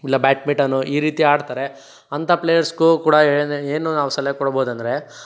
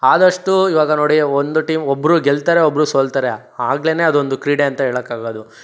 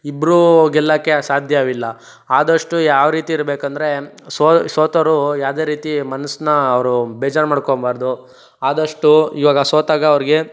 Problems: none marked